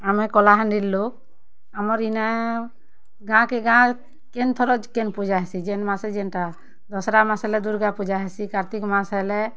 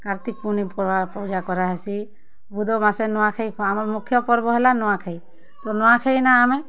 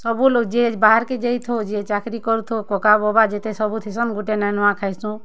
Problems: constant background noise